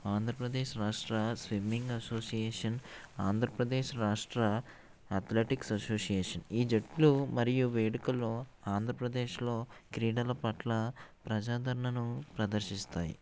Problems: none marked